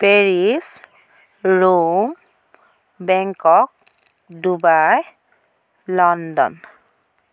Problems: constant background noise